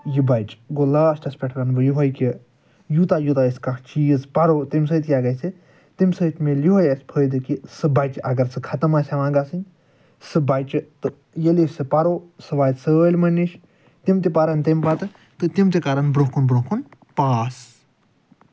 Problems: none marked